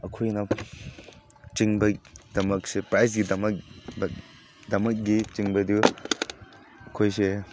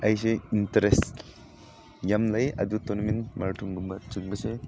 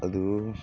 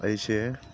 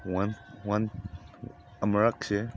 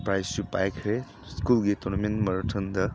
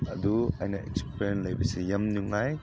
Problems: background sounds at intervals